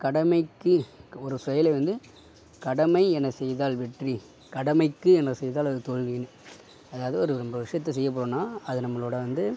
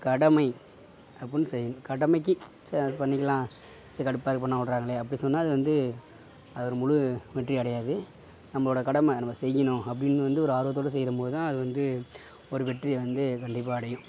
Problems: none marked